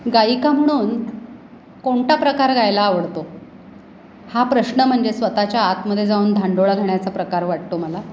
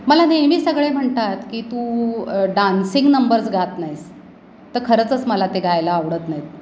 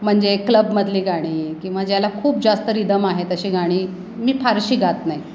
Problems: none marked